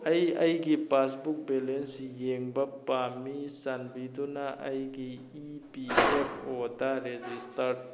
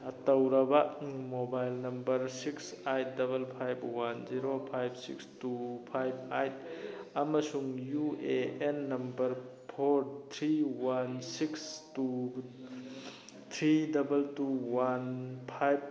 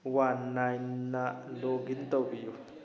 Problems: constant background noise